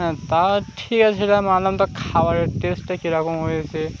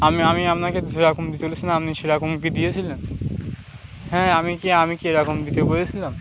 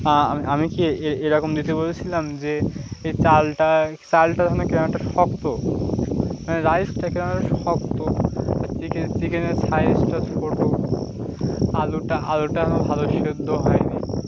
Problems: constant background noise